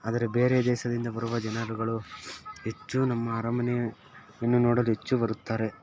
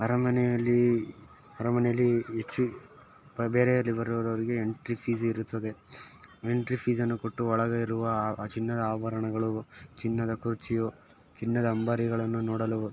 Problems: background sounds at intervals